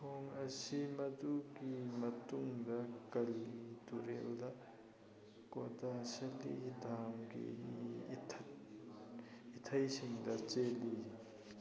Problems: constant background noise